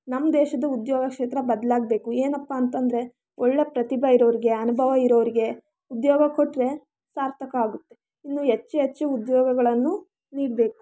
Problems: background sounds at intervals, background conversations at intervals